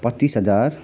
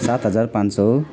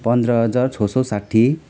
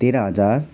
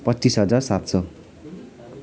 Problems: none marked